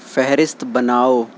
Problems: constant background noise